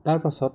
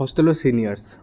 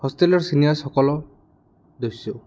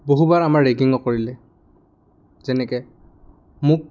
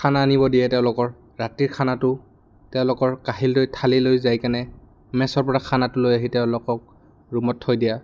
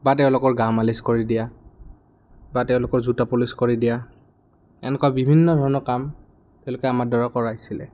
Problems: background sounds at intervals